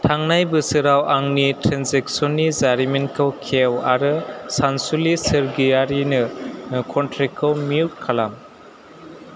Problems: none marked